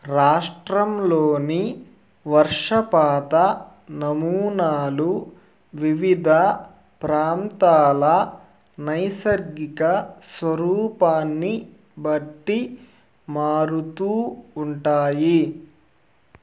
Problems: constant background noise